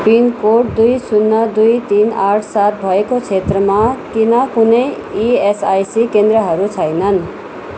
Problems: constant background noise